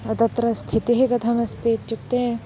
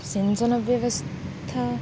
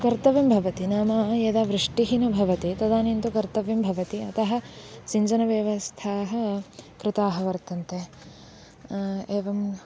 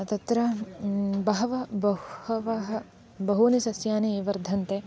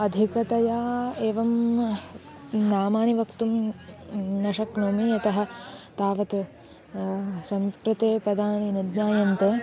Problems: none marked